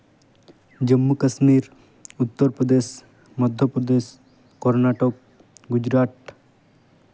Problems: none marked